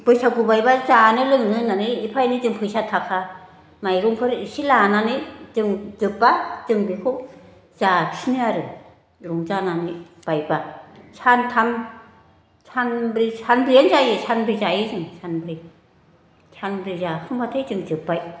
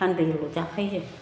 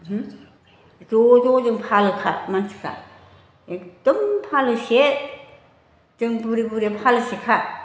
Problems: constant background noise